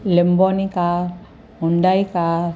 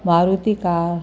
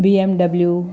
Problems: constant background noise, echo